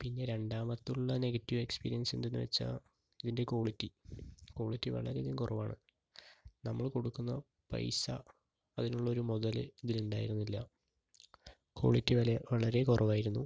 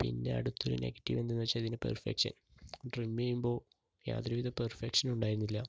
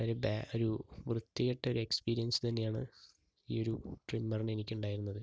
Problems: low volume